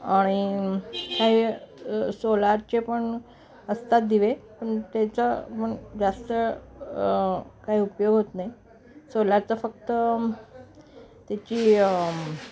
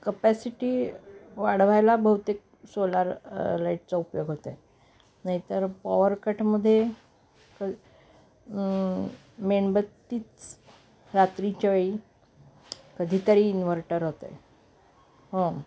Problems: background sounds at intervals, background conversations at intervals